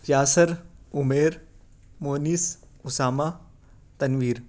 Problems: none marked